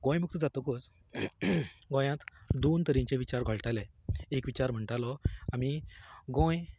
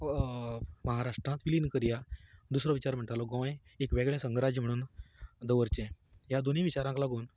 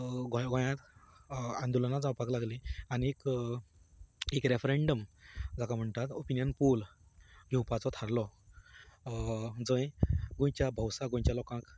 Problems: continuous background conversations